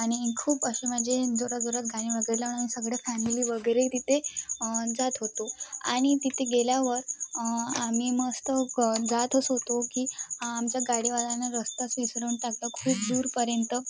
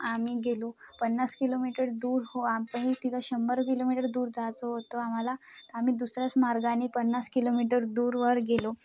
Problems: constant background noise, background conversations at intervals